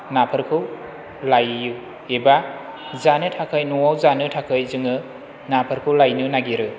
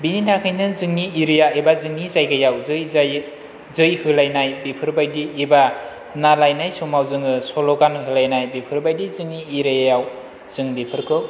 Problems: none marked